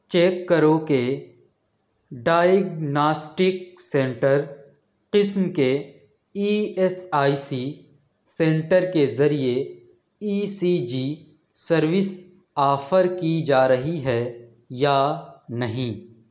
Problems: none marked